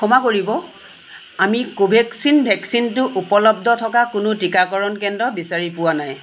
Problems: constant background noise